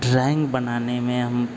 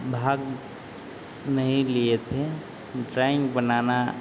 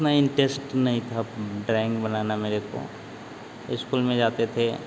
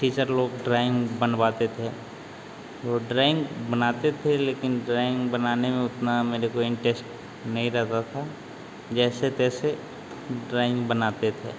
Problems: constant background noise